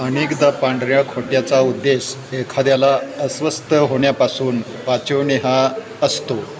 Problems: constant background noise, background conversations at intervals